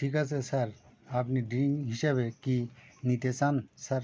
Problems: none marked